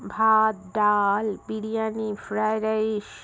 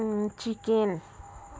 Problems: continuous background conversations